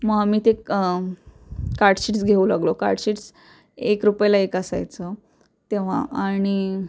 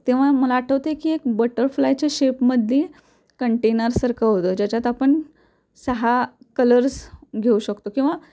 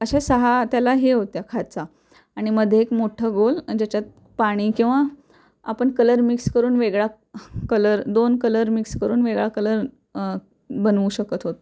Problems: none marked